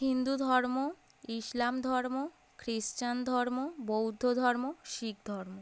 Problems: none marked